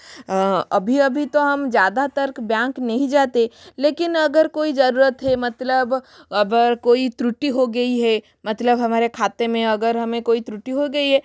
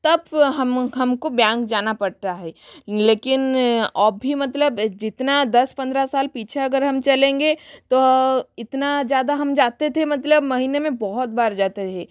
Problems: constant background noise